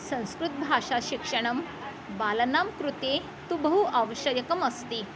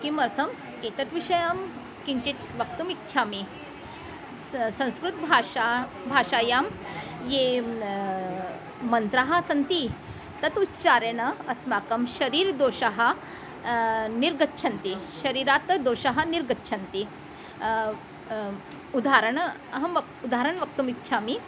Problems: constant background noise